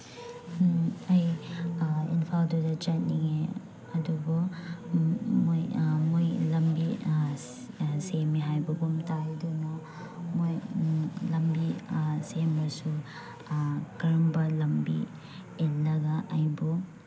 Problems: background sounds at intervals, background conversations at intervals